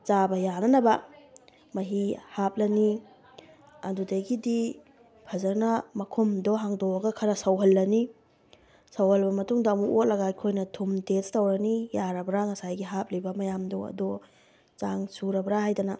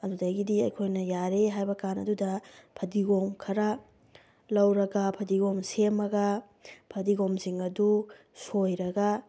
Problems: background sounds at intervals